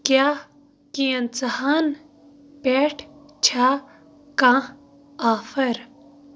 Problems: background sounds at intervals